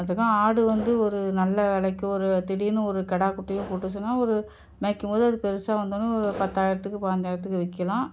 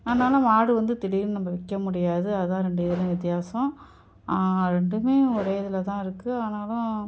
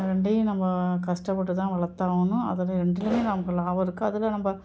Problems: background sounds at intervals